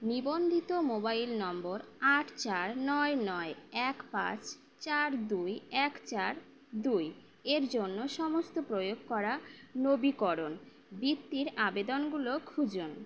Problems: background sounds at intervals